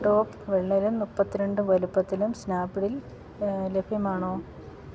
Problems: low volume